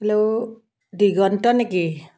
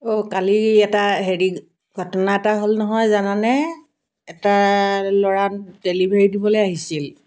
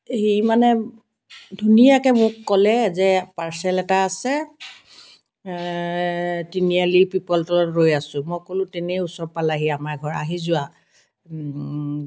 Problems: background conversations at intervals